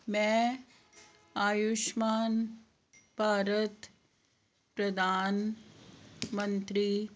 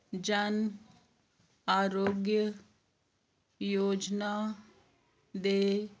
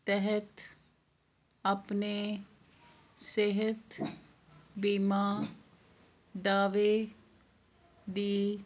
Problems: none marked